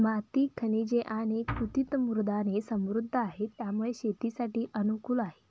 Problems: background sounds at intervals, low volume